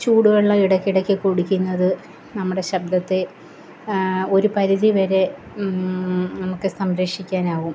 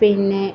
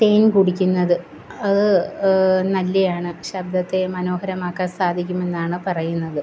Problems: constant background noise